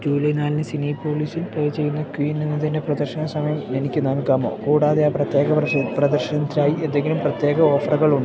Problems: constant background noise, low volume